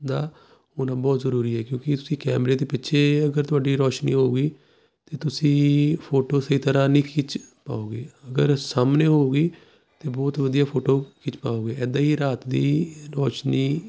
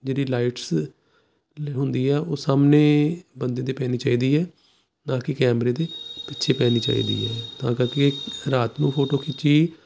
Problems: none marked